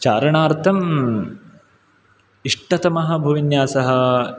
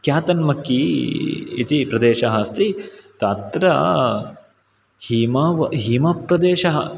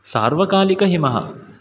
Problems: background sounds at intervals